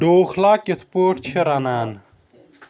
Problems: background sounds at intervals, background conversations at intervals